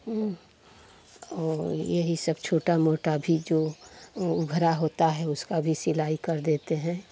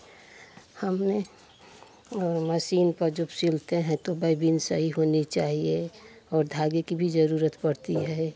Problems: constant background noise, continuous background conversations